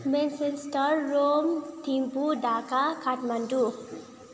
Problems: none marked